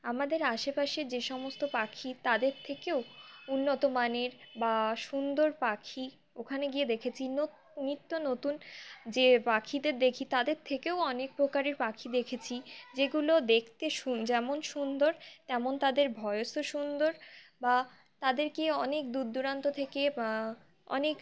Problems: none marked